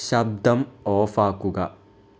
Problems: none marked